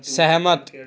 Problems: background sounds at intervals